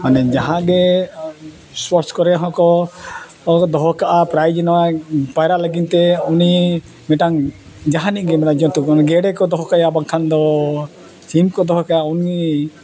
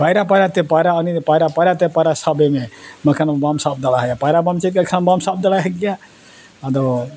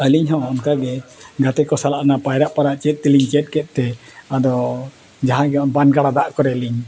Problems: background sounds at intervals, continuous background conversations